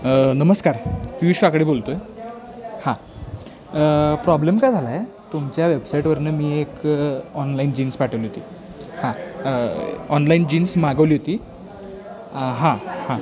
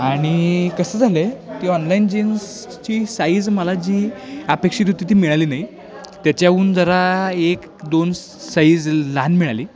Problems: constant background noise